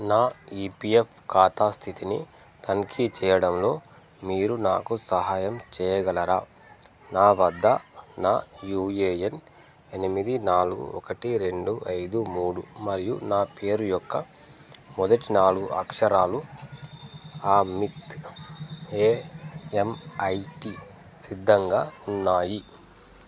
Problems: none marked